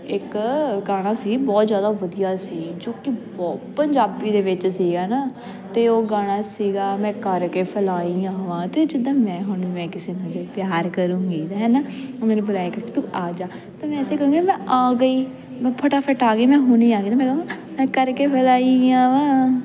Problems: continuous background conversations